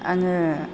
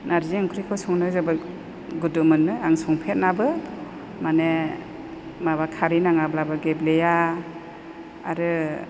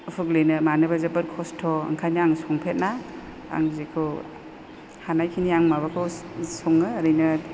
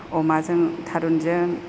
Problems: none marked